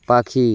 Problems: background sounds at intervals